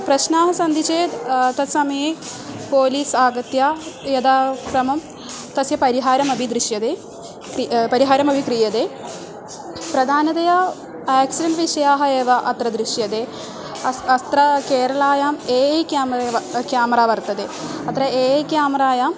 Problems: none marked